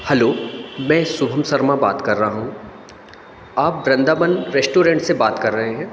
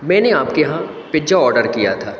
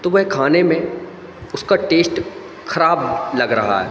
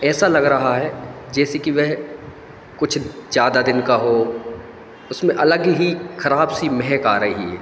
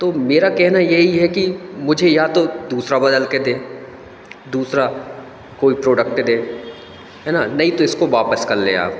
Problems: constant background noise